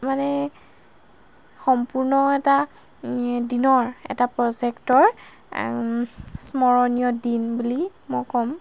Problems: none marked